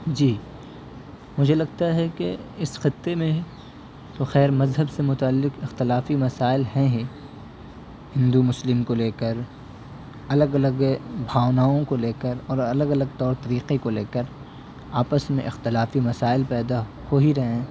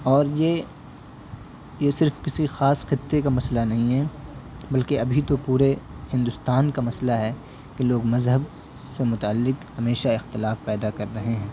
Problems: constant background noise